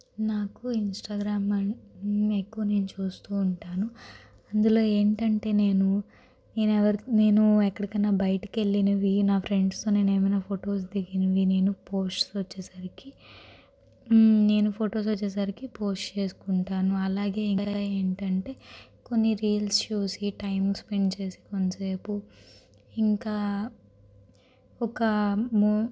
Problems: constant background noise